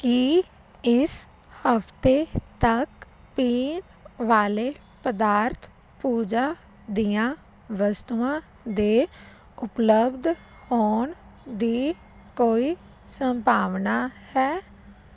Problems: constant background noise